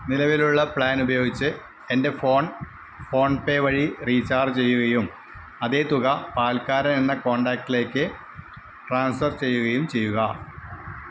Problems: constant background noise